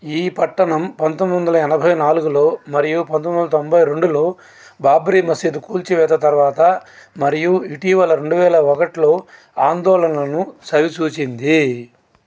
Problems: constant background noise